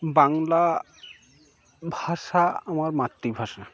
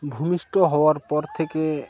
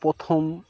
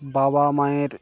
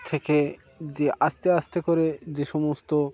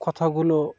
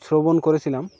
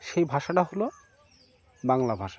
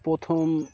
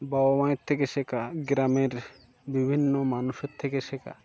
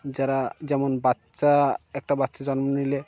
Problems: background sounds at intervals